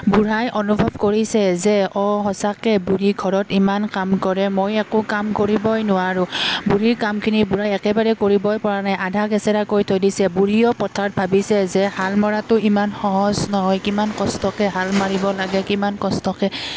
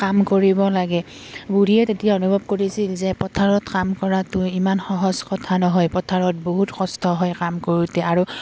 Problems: background sounds at intervals